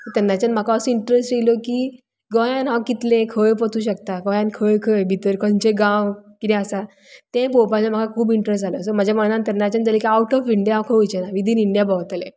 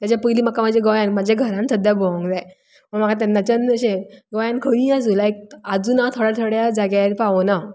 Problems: none marked